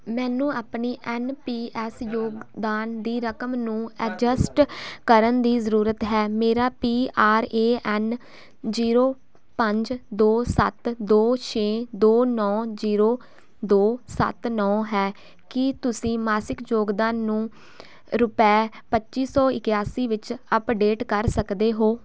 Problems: background conversations at intervals